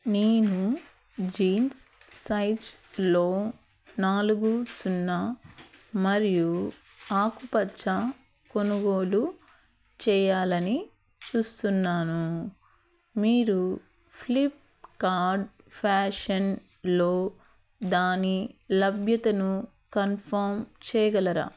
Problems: none marked